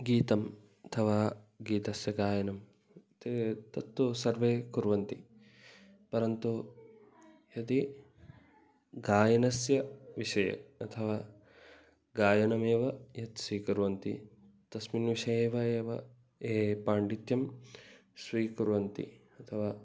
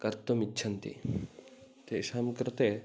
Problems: none marked